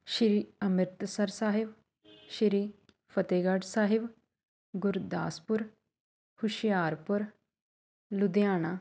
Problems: background sounds at intervals